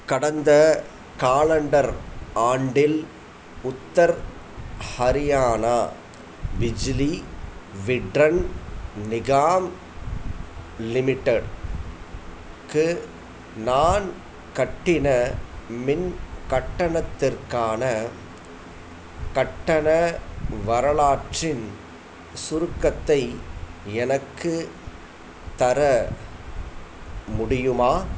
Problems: none marked